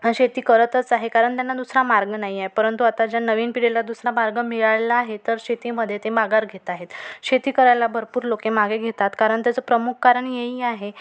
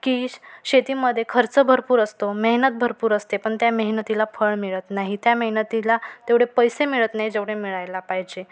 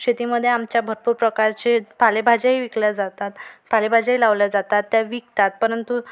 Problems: none marked